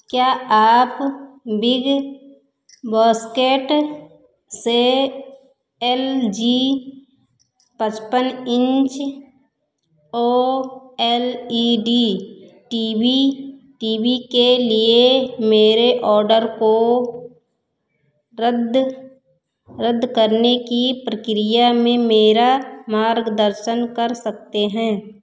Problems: echo